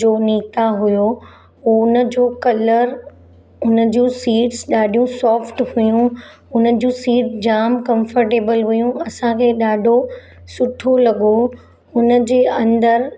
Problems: none marked